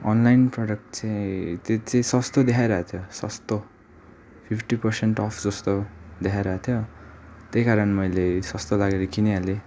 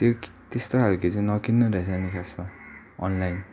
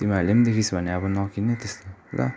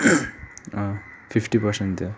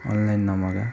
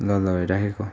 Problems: constant background noise